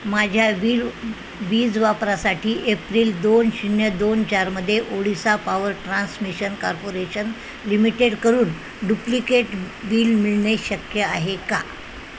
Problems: constant background noise